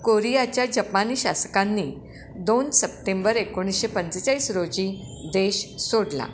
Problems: constant background noise, echo